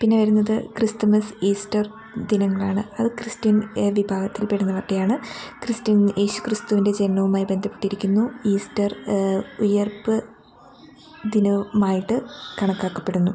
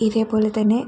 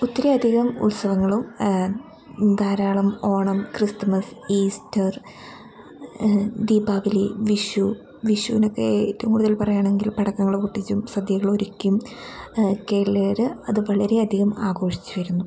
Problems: constant background noise